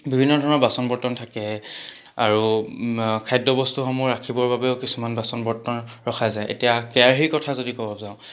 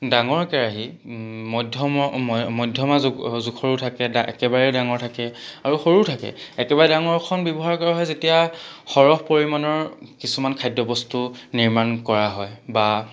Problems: background sounds at intervals